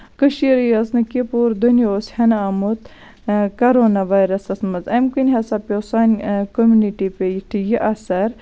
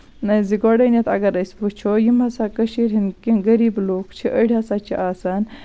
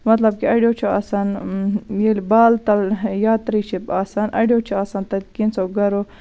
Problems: constant background noise